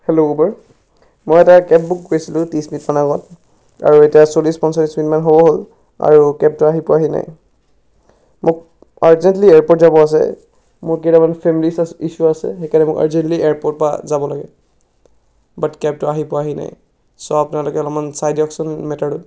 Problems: background sounds at intervals